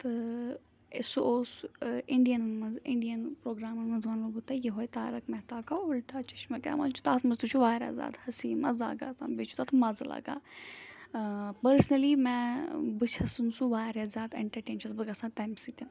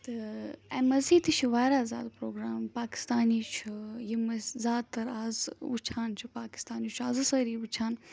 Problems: background sounds at intervals